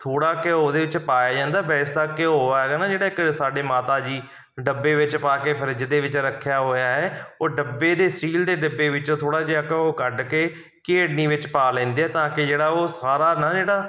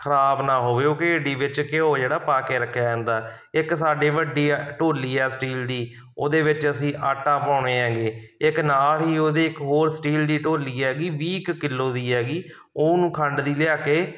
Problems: background sounds at intervals